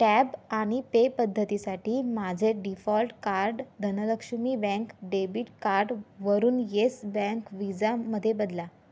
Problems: background sounds at intervals, background conversations at intervals